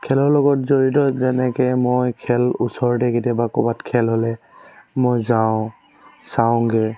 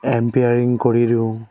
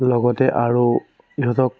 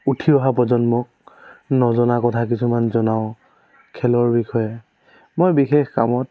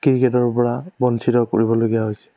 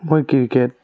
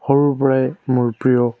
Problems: none marked